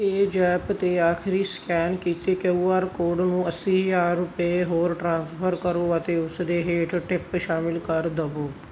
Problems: background sounds at intervals